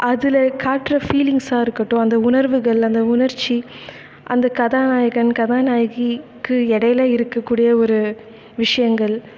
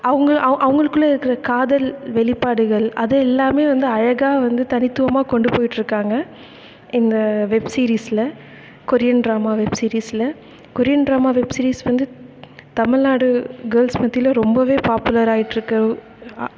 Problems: constant background noise, echo